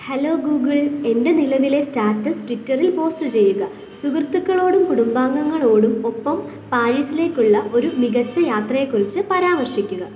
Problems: constant background noise